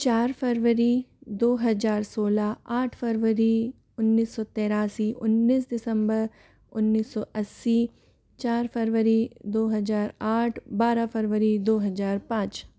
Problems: low volume